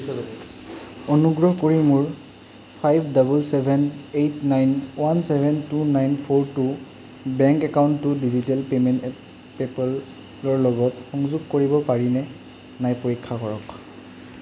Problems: constant background noise